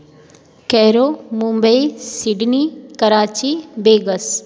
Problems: background sounds at intervals